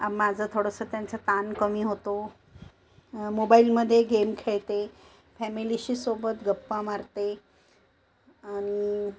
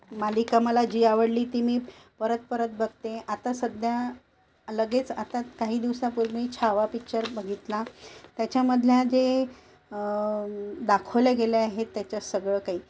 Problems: constant background noise